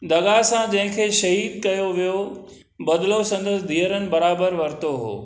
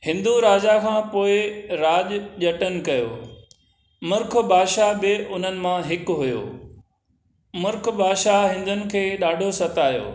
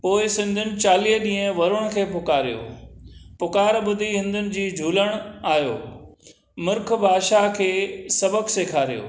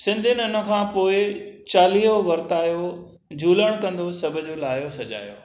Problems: none marked